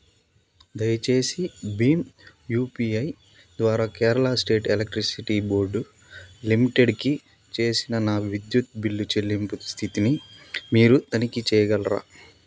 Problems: constant background noise